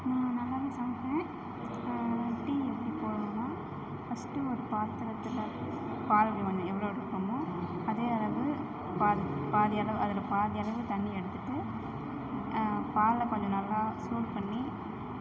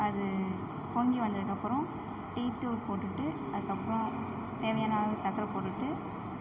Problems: constant background noise